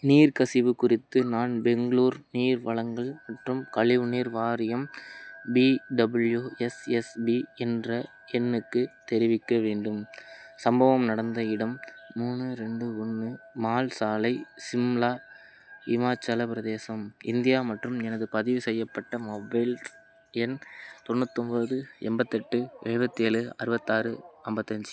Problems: constant background noise